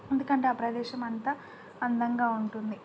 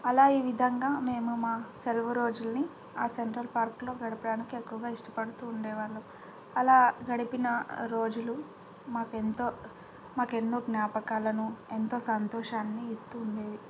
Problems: low volume